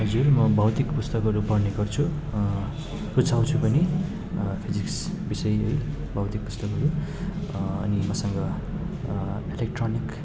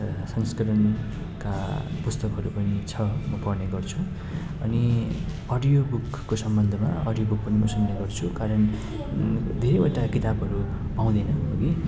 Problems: background sounds at intervals